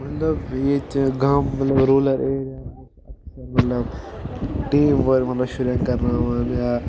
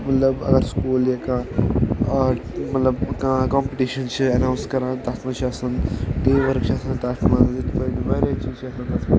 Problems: constant background noise, background conversations at intervals